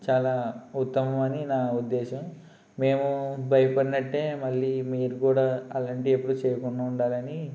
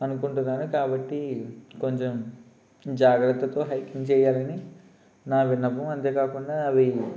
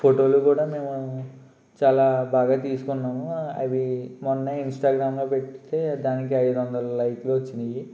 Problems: none marked